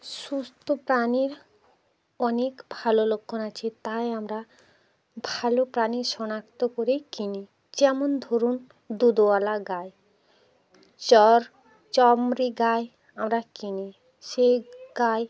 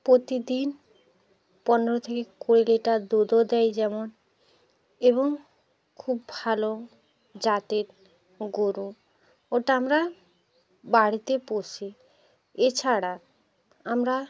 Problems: continuous background conversations